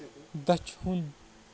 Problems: background sounds at intervals, background conversations at intervals